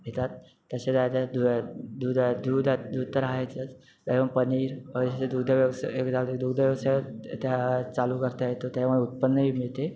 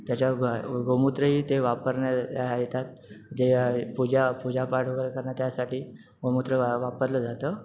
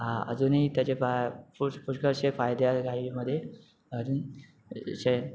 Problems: none marked